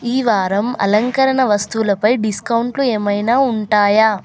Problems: constant background noise, continuous background conversations